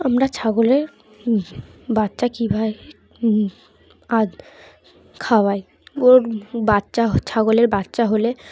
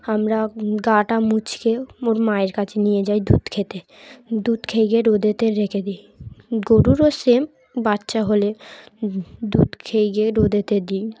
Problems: none marked